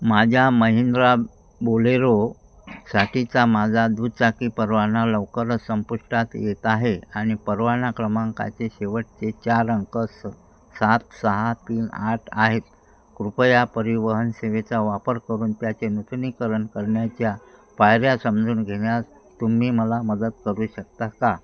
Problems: constant background noise, background conversations at intervals